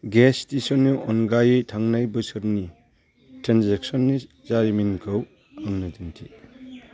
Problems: none marked